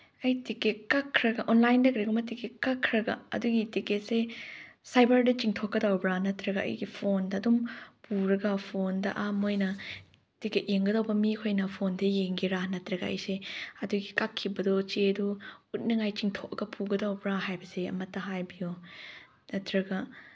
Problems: none marked